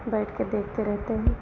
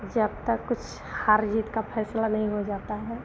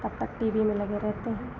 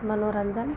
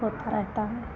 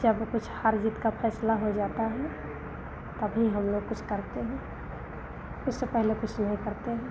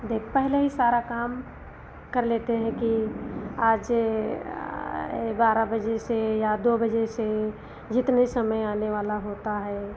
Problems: none marked